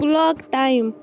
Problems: constant background noise, low volume